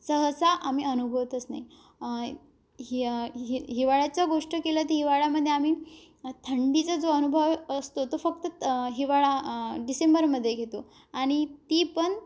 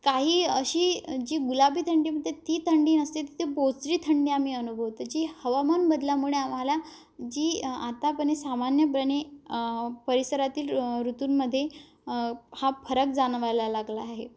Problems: none marked